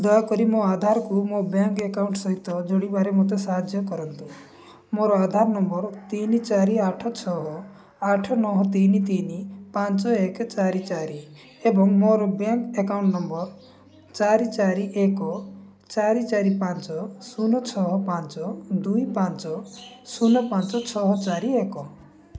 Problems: background sounds at intervals